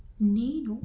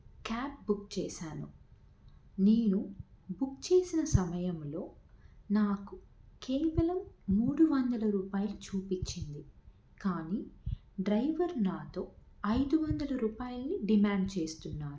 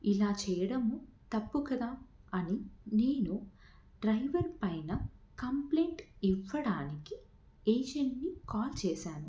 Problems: none marked